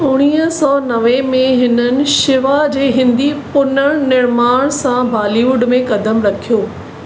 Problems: constant background noise, echo